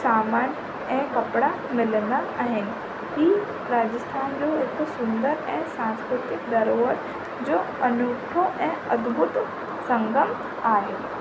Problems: constant background noise, low volume